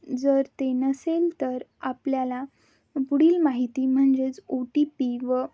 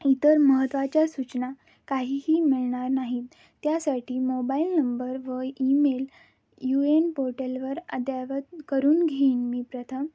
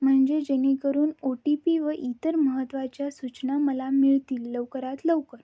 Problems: background sounds at intervals